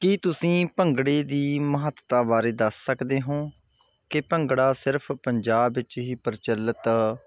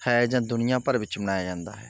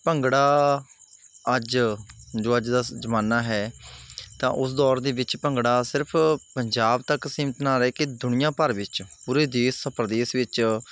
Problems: none marked